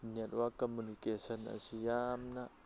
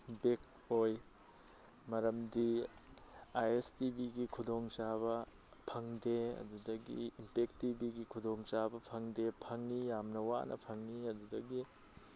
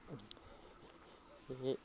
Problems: background conversations at intervals